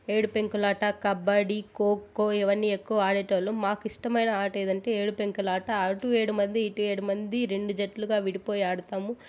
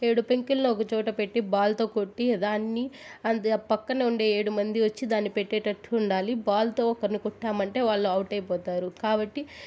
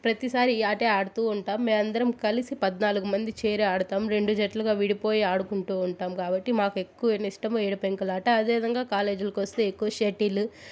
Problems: constant background noise